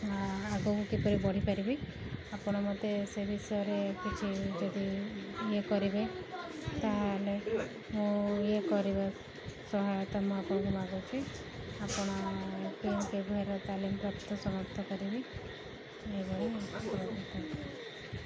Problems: background sounds at intervals, background conversations at intervals